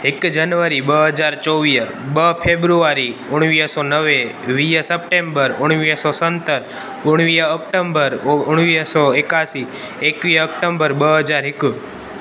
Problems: constant background noise, echo